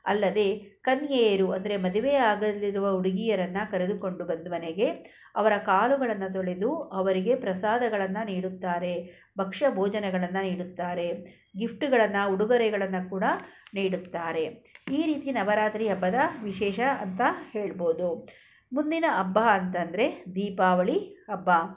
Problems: none marked